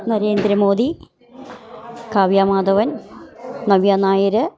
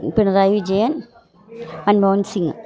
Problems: background conversations at intervals